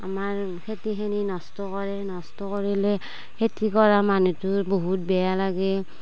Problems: background sounds at intervals, background conversations at intervals